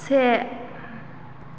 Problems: constant background noise